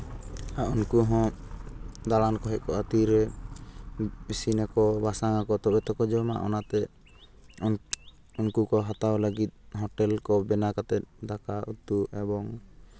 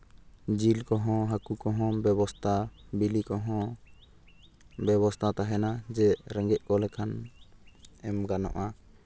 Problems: none marked